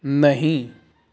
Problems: constant background noise